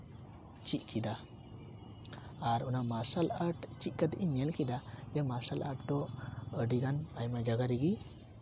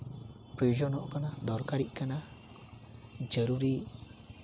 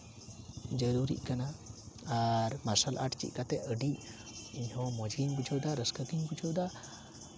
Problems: constant background noise